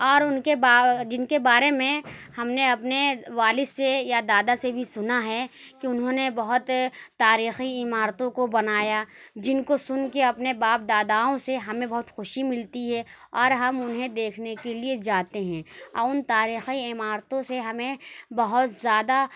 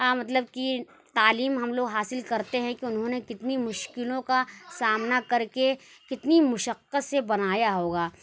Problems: constant background noise